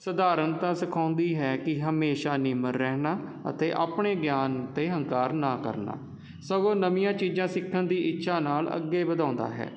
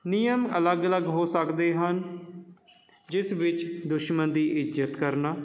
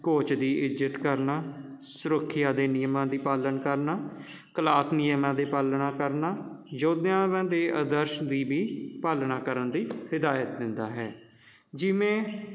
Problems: constant background noise